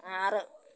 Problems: none marked